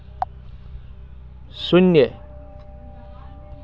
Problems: constant background noise, continuous background conversations